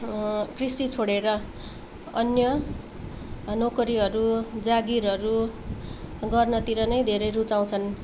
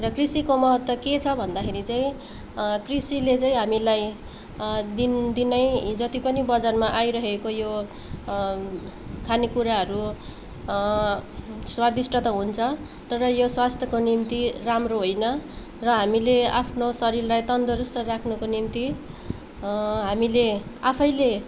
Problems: none marked